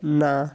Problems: none marked